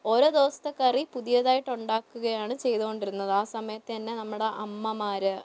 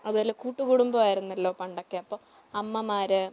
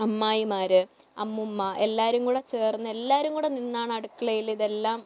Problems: low volume